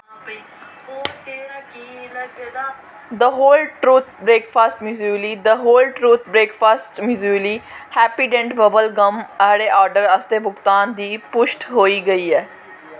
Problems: constant background noise, background conversations at intervals